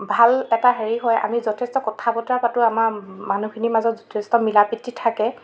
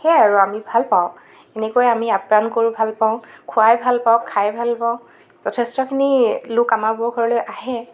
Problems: background sounds at intervals